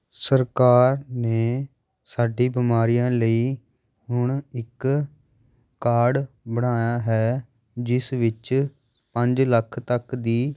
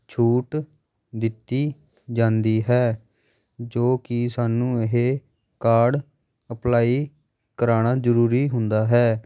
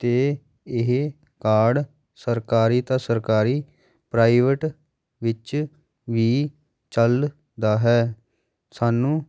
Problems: background sounds at intervals, background conversations at intervals